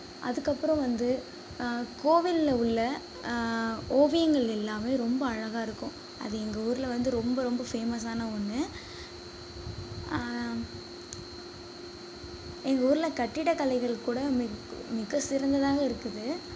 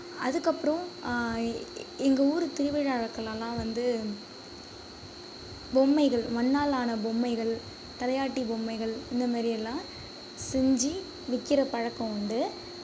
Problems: background sounds at intervals, low volume